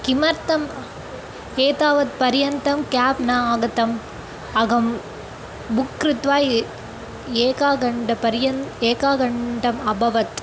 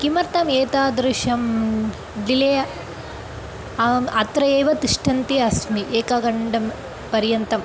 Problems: constant background noise